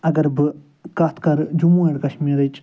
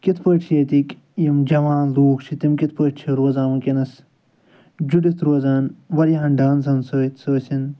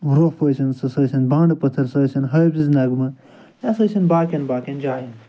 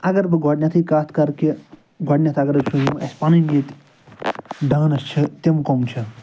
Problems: none marked